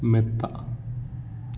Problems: background sounds at intervals